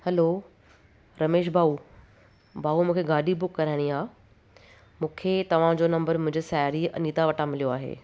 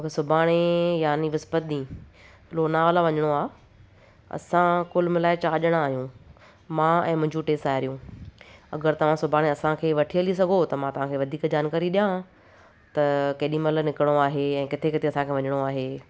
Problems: none marked